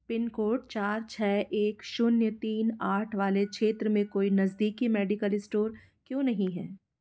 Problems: background sounds at intervals